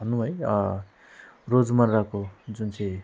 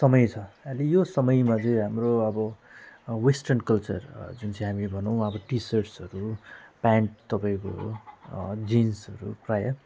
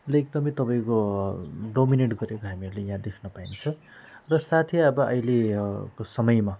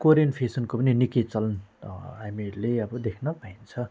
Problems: none marked